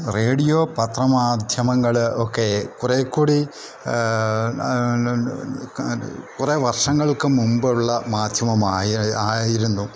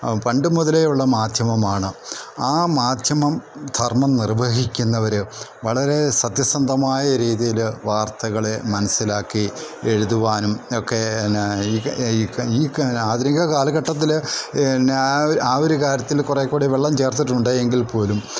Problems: none marked